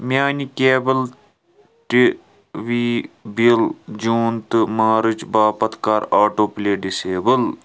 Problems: none marked